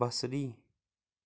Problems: none marked